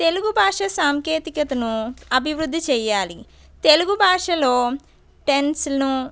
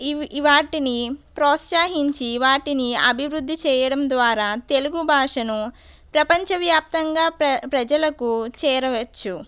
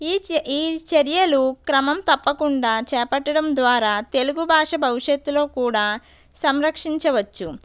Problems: none marked